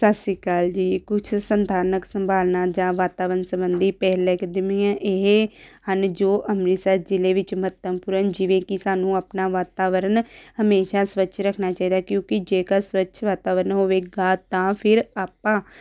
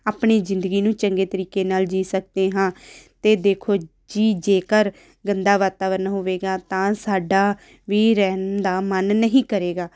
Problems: background sounds at intervals